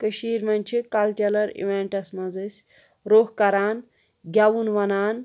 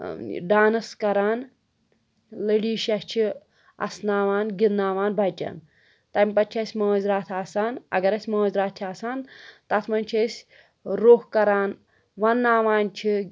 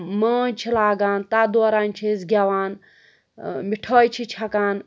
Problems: none marked